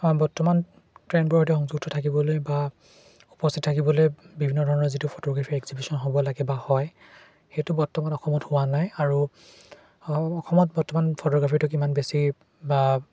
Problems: constant background noise